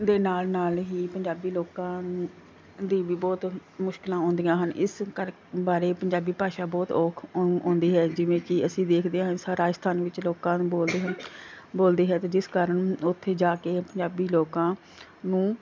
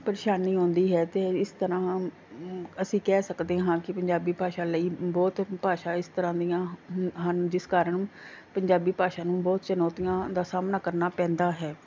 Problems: background sounds at intervals